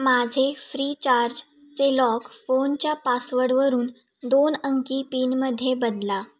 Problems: none marked